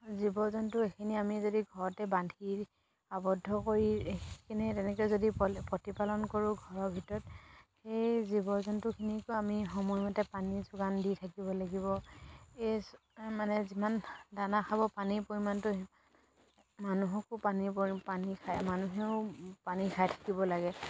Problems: background sounds at intervals